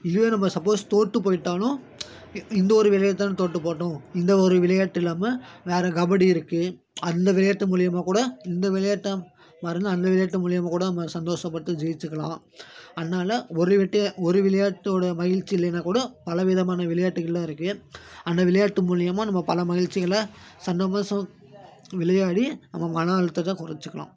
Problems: constant background noise